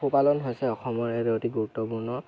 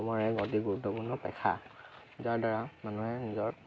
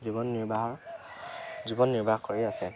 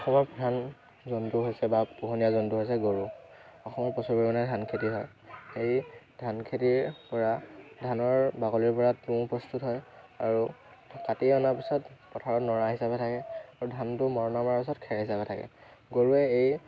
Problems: constant background noise, background conversations at intervals